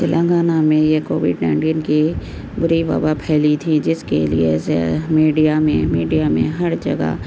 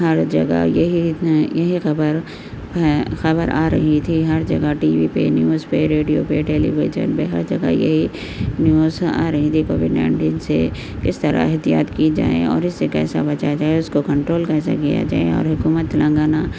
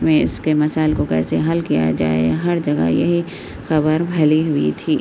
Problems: constant background noise, low volume